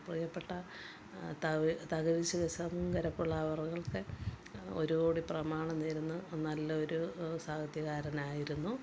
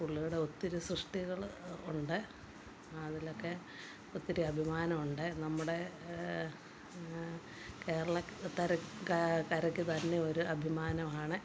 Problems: background sounds at intervals, low volume